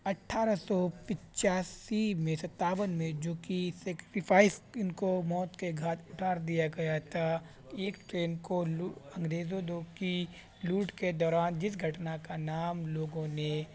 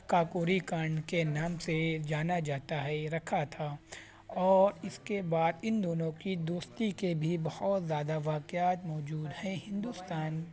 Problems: constant background noise